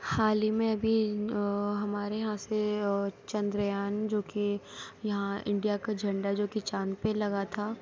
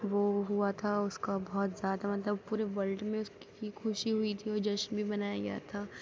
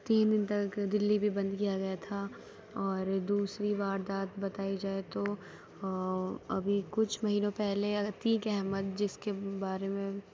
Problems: none marked